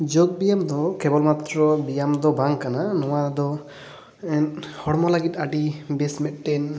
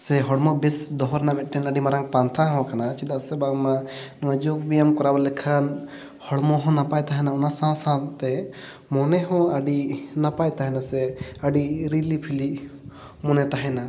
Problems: background sounds at intervals, echo